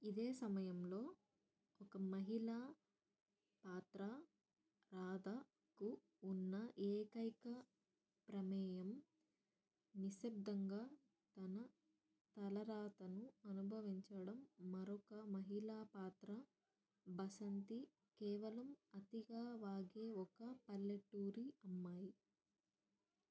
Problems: low volume